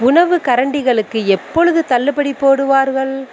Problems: background sounds at intervals